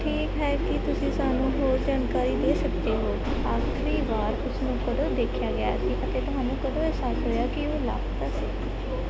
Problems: constant background noise